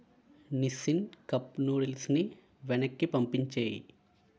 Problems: constant background noise